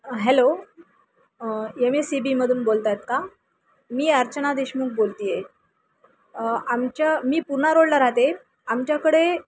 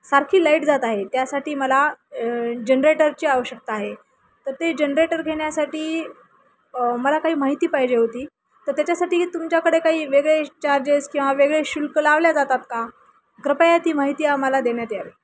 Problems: none marked